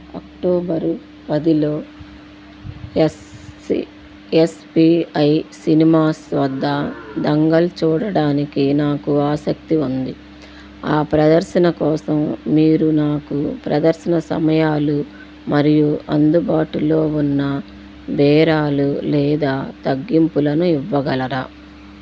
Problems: constant background noise